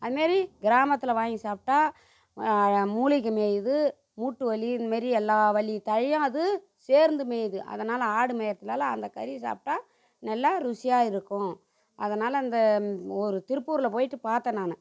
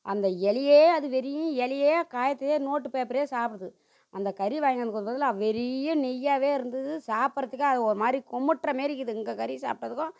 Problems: none marked